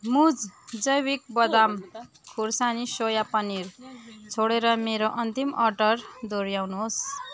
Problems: continuous background conversations